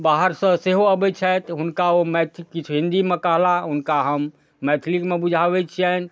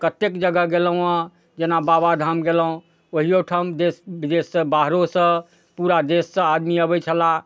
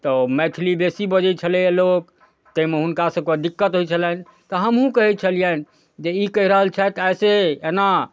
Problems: none marked